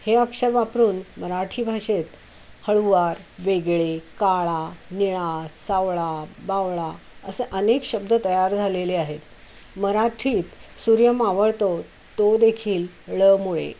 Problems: constant background noise